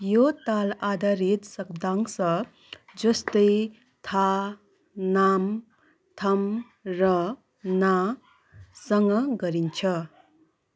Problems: constant background noise